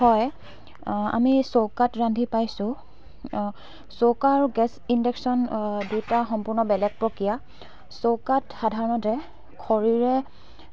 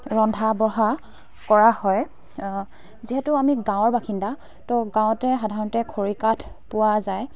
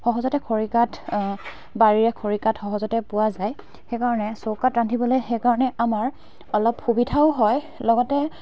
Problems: constant background noise, background conversations at intervals